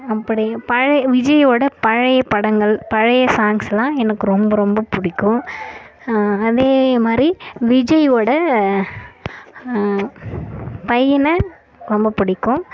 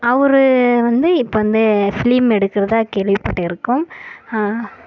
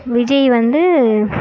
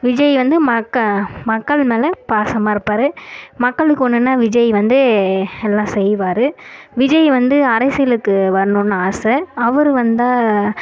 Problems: background sounds at intervals